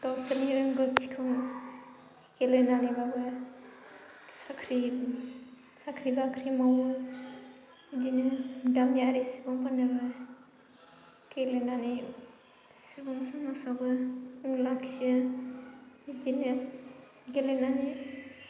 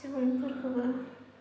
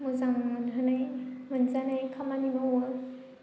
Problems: low volume